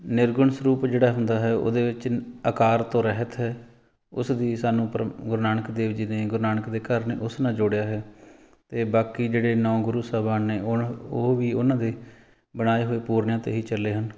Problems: background sounds at intervals